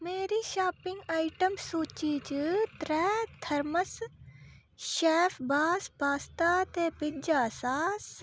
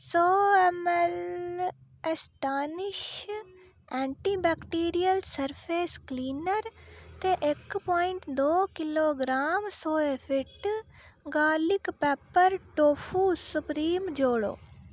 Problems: none marked